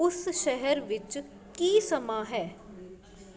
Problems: constant background noise